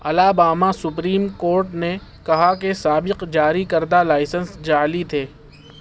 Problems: none marked